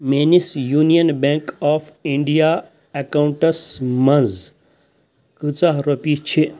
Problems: constant background noise